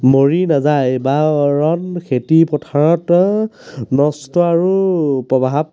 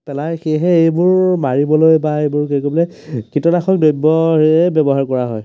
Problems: background conversations at intervals